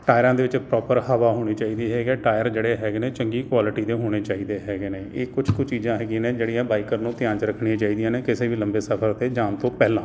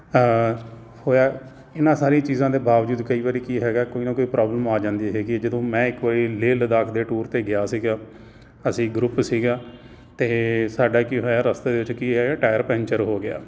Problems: none marked